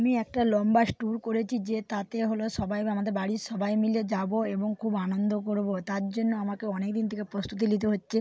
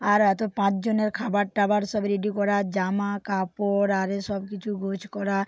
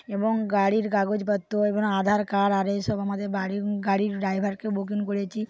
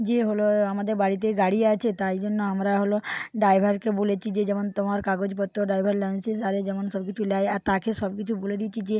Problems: background sounds at intervals